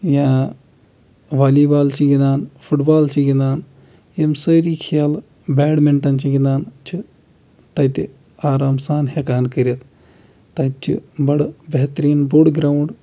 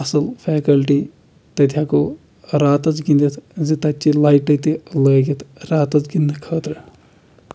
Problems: none marked